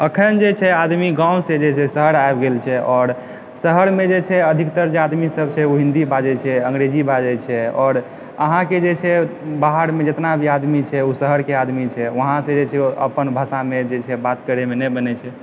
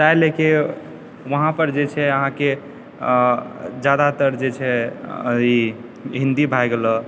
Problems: background sounds at intervals